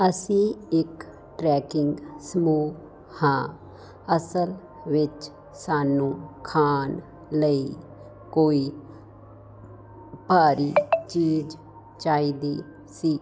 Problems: constant background noise